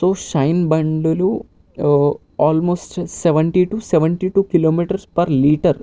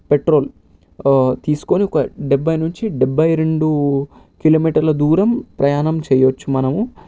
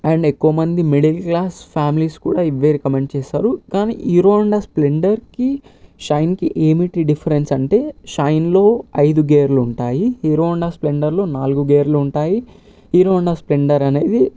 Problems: none marked